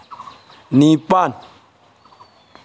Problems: none marked